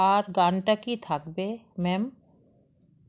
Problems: constant background noise